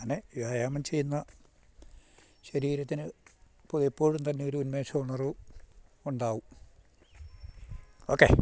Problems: none marked